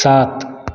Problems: constant background noise